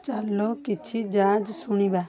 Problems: constant background noise, continuous background conversations